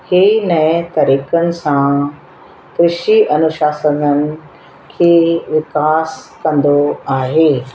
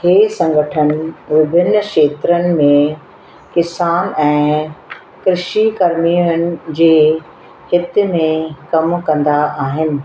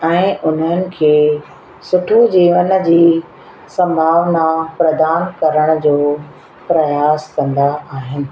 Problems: constant background noise, echo